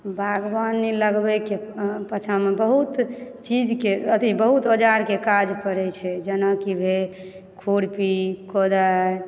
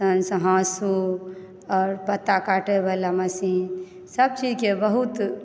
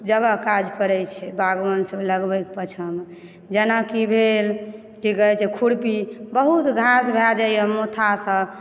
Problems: background sounds at intervals